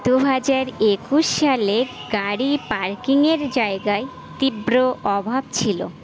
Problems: none marked